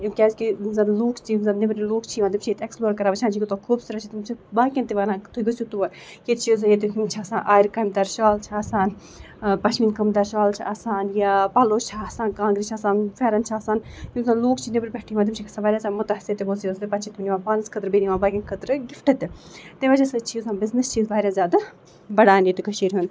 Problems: background sounds at intervals